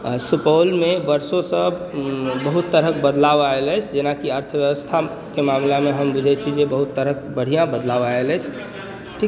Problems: background sounds at intervals, background conversations at intervals